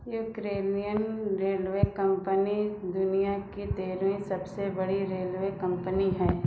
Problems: background sounds at intervals